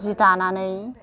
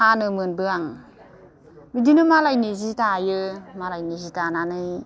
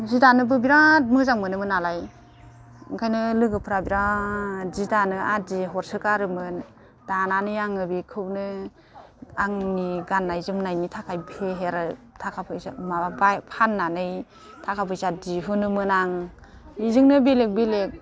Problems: constant background noise